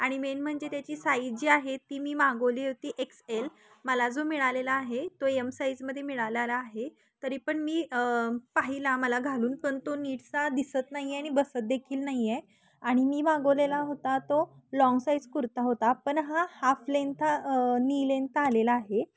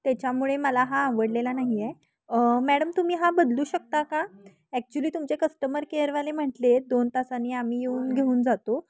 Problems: background conversations at intervals